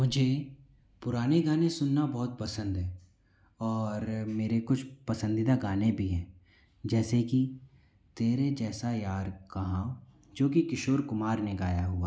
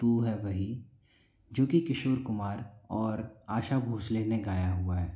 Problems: constant background noise